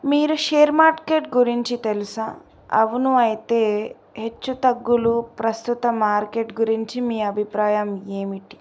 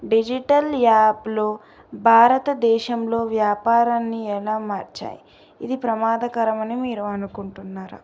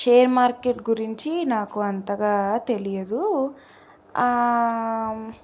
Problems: none marked